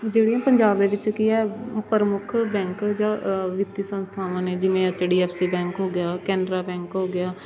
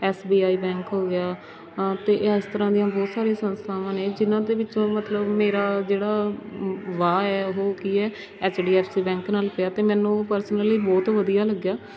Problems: none marked